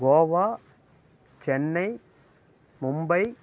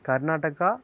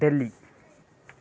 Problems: background sounds at intervals